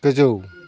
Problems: none marked